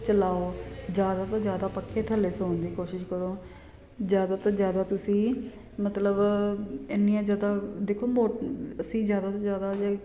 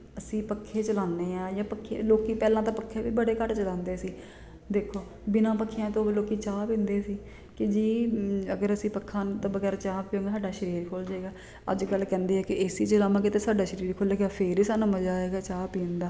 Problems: constant background noise